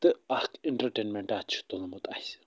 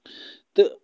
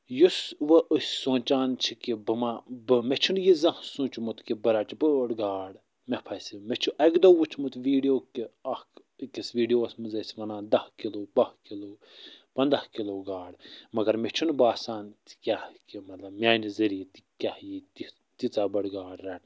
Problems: none marked